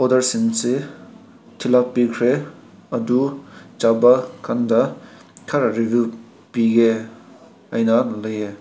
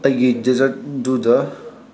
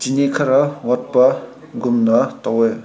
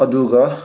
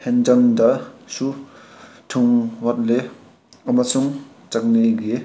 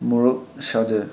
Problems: background sounds at intervals